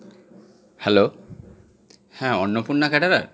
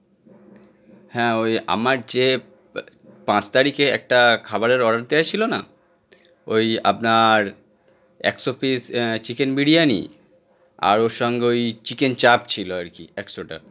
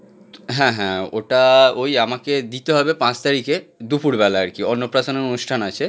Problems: constant background noise